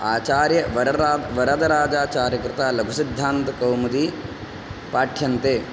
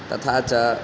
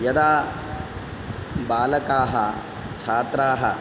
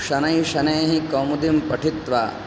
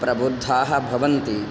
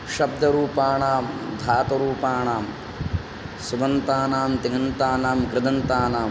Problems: none marked